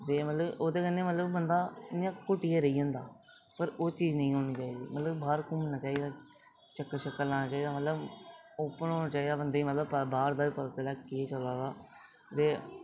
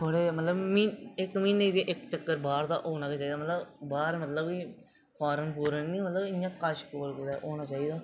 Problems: background sounds at intervals, low volume